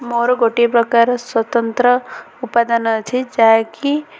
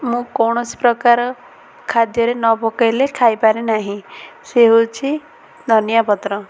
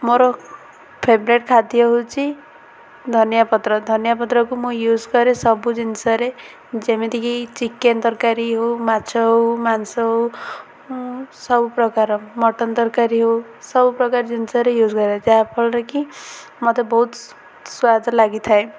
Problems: constant background noise, continuous background conversations